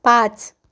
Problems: none marked